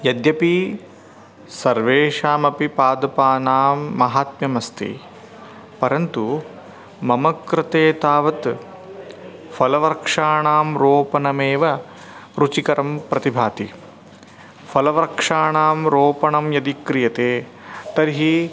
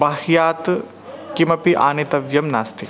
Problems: none marked